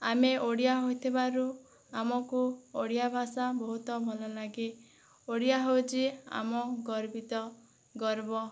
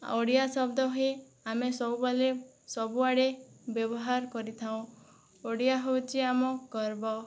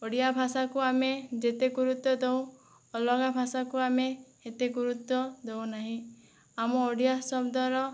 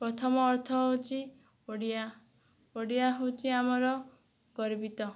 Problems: none marked